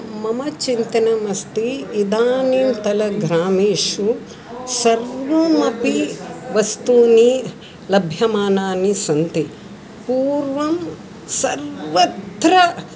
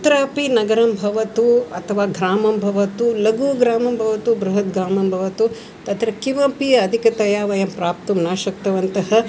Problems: continuous background conversations